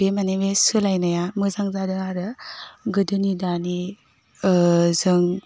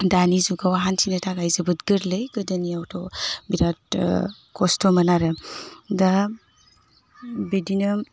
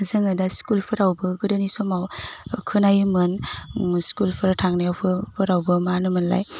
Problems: constant background noise